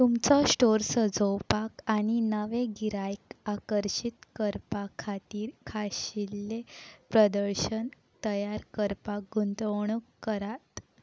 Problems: none marked